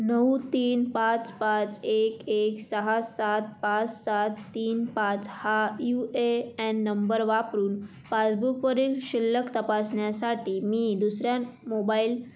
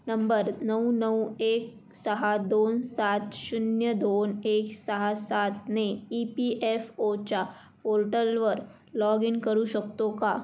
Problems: none marked